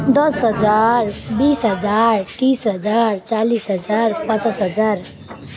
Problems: none marked